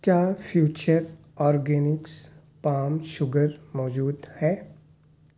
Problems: none marked